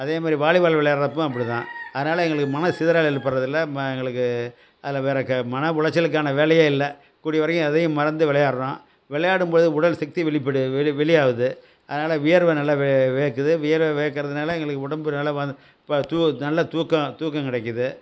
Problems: constant background noise